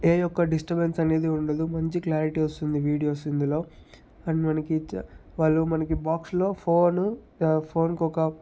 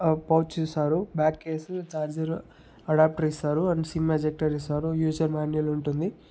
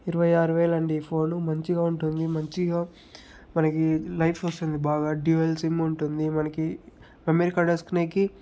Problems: background sounds at intervals